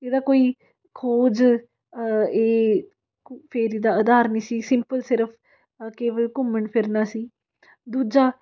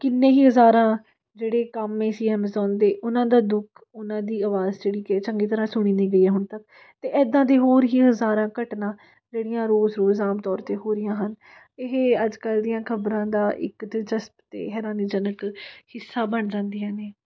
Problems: none marked